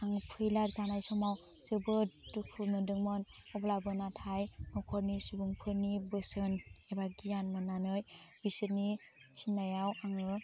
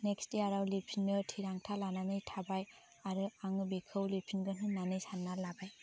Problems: none marked